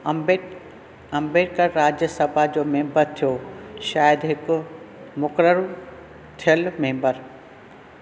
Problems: constant background noise